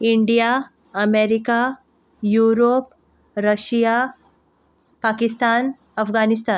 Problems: none marked